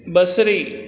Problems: constant background noise, echo